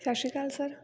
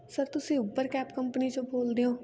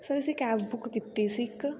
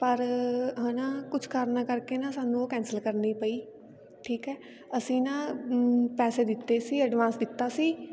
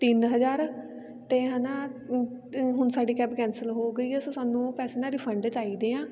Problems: continuous background conversations